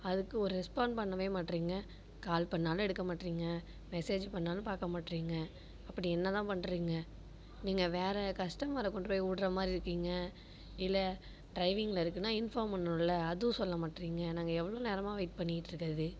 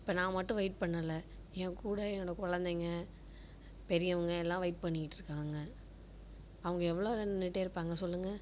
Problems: none marked